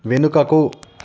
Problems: constant background noise